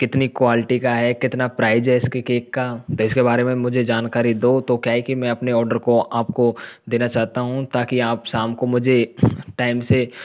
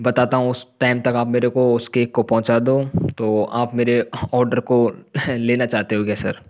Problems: none marked